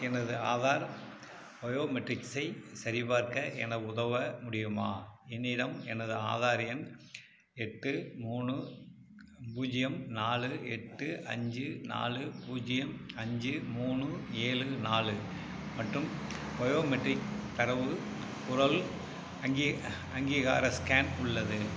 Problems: none marked